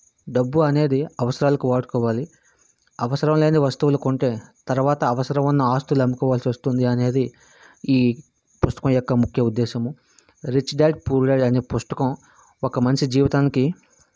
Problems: constant background noise